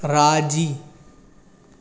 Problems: constant background noise, echo